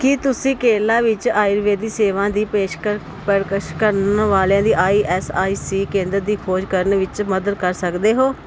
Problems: none marked